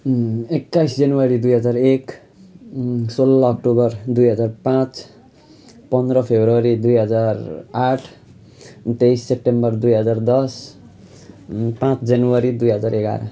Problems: none marked